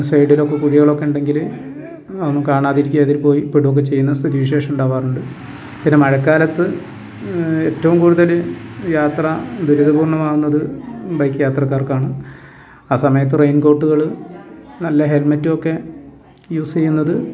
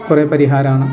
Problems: constant background noise